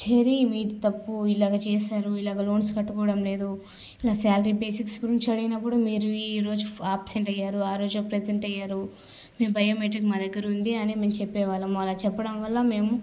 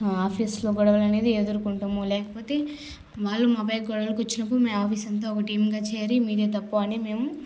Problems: constant background noise